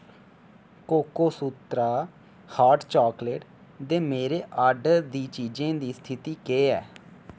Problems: none marked